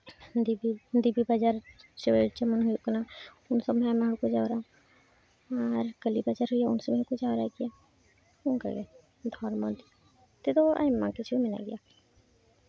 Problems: constant background noise